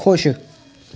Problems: none marked